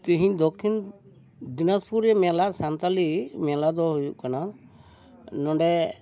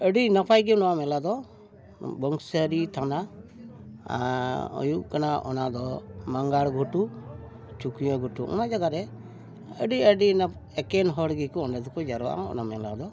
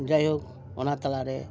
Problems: constant background noise, continuous background conversations